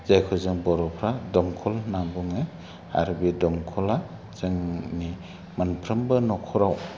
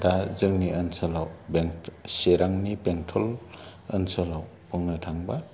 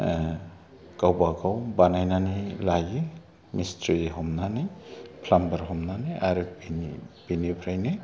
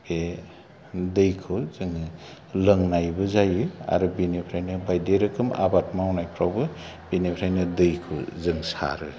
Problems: none marked